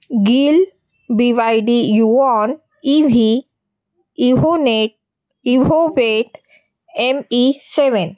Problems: none marked